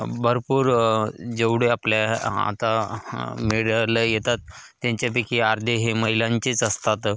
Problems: constant background noise, background conversations at intervals